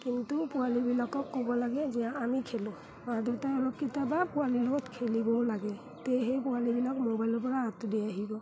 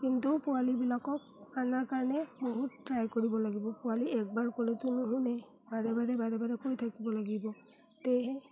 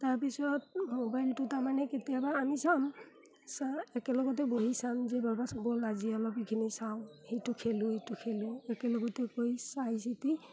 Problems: constant background noise